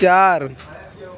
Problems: none marked